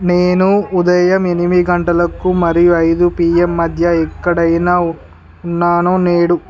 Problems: background conversations at intervals